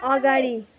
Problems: continuous background conversations